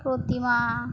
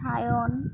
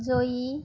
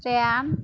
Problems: none marked